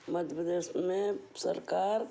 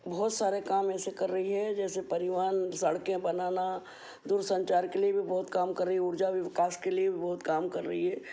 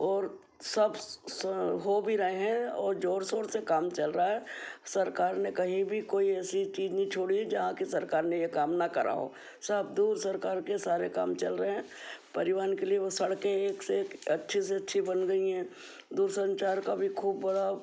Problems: constant background noise